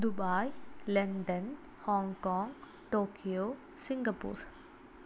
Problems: low volume